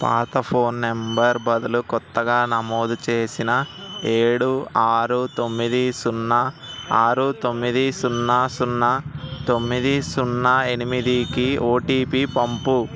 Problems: constant background noise